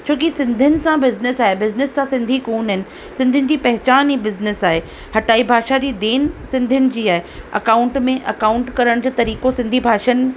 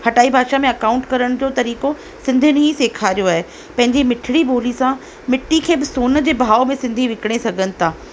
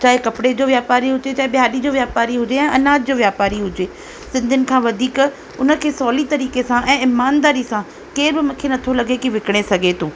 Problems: constant background noise